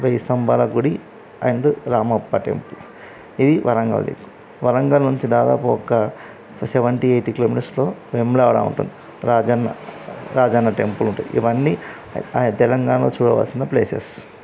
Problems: constant background noise, background conversations at intervals